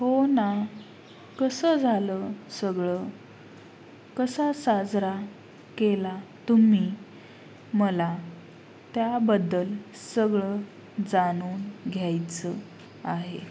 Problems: constant background noise